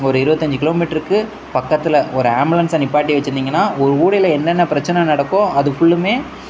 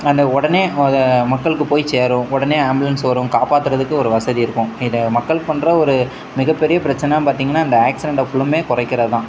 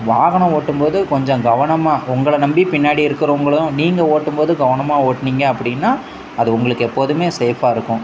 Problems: background sounds at intervals